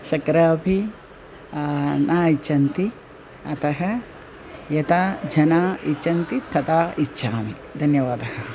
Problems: constant background noise, continuous background conversations